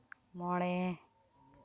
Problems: none marked